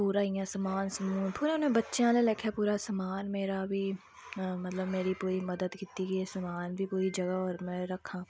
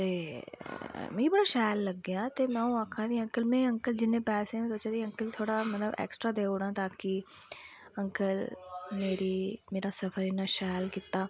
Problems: constant background noise